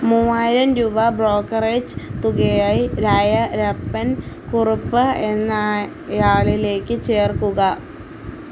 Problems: none marked